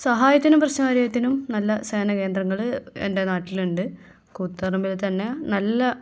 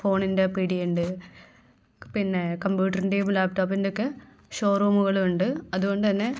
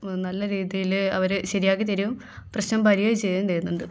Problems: none marked